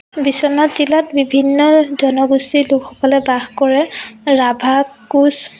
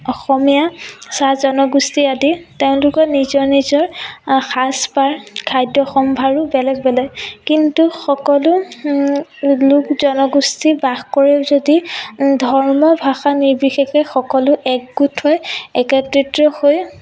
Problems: background sounds at intervals